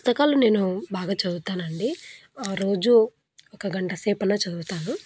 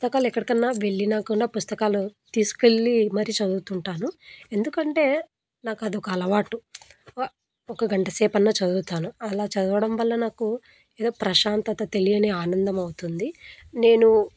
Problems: background sounds at intervals